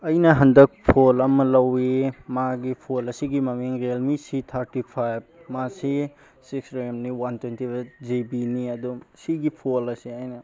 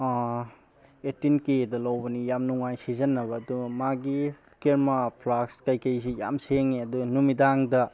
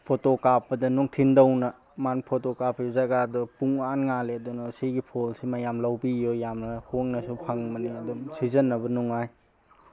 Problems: background conversations at intervals